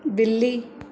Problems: constant background noise